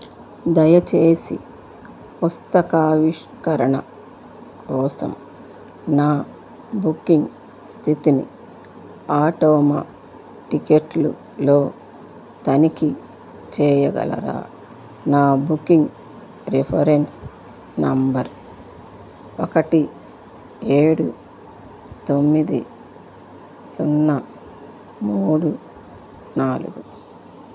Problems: background sounds at intervals